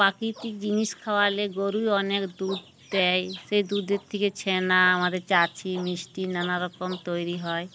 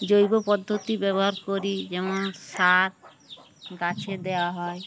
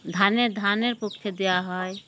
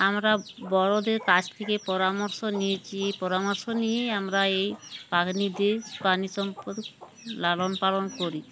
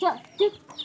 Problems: constant background noise